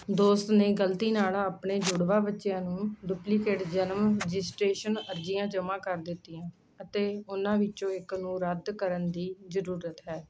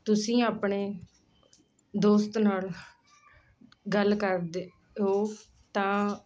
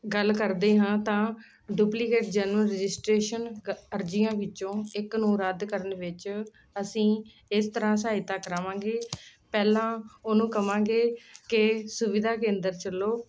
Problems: constant background noise